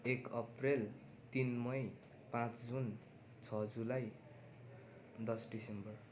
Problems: continuous background conversations